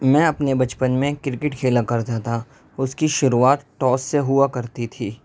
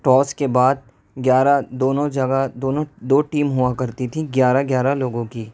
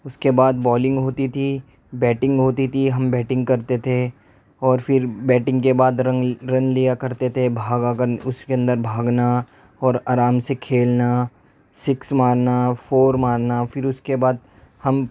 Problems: none marked